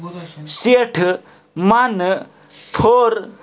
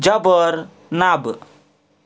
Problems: background sounds at intervals